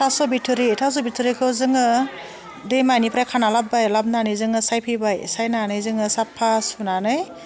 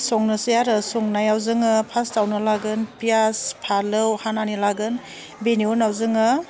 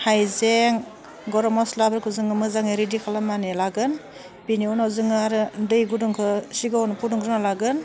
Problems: none marked